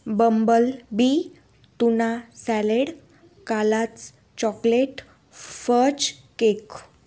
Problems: none marked